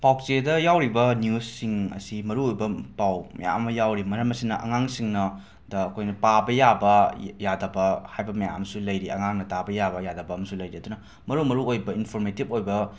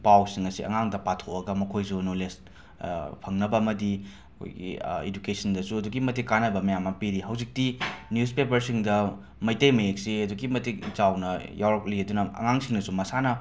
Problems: background sounds at intervals